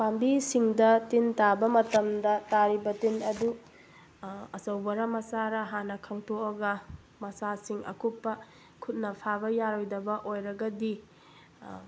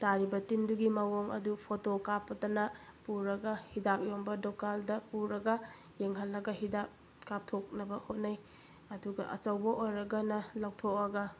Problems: constant background noise